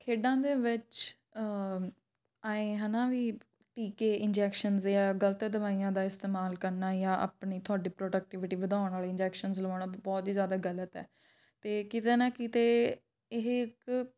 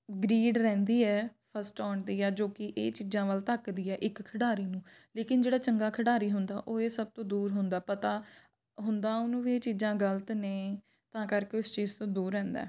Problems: background sounds at intervals